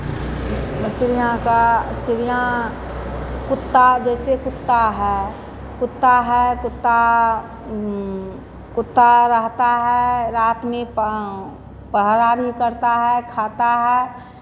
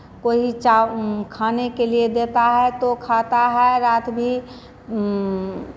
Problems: constant background noise